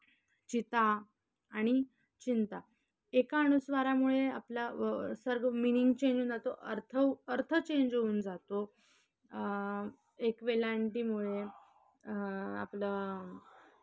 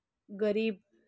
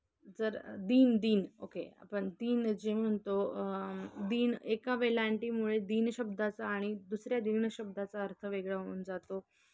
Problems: none marked